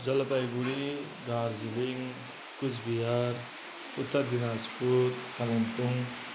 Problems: background sounds at intervals